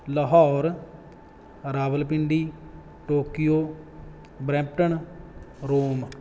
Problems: none marked